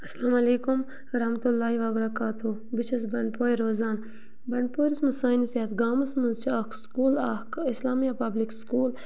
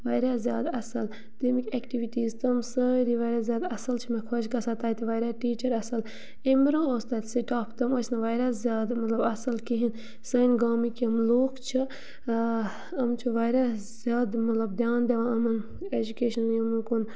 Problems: low volume